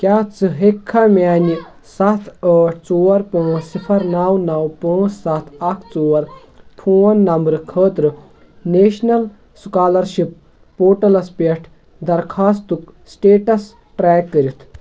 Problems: background conversations at intervals